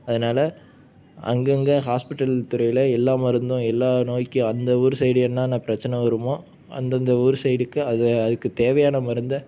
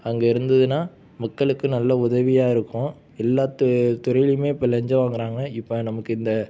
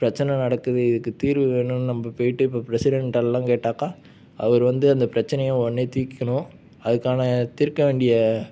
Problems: none marked